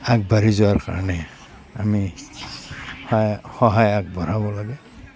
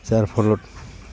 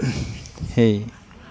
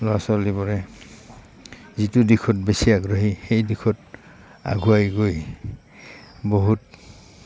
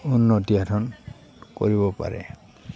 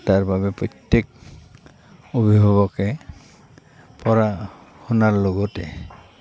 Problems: constant background noise, background conversations at intervals